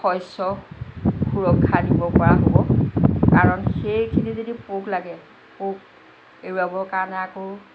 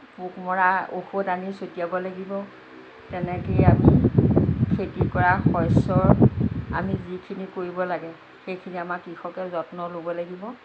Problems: constant background noise